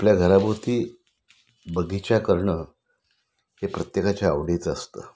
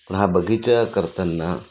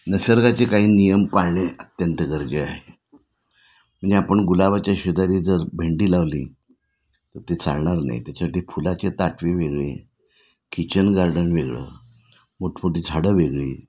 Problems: none marked